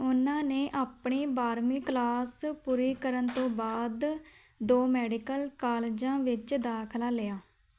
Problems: none marked